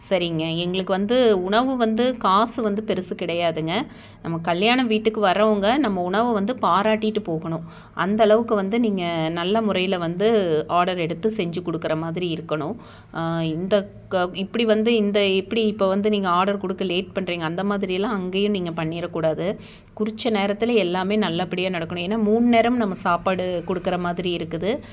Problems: none marked